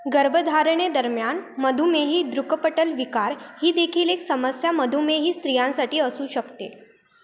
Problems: constant background noise, background conversations at intervals